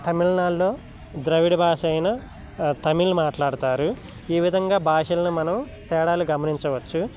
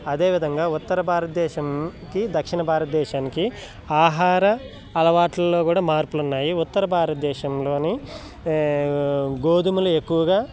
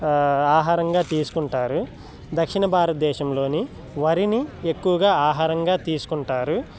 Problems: background conversations at intervals